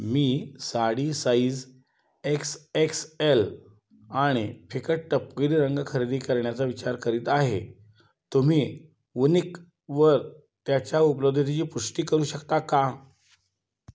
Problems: background sounds at intervals